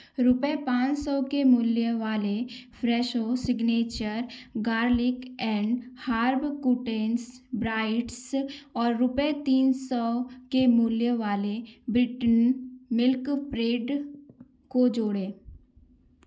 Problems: background sounds at intervals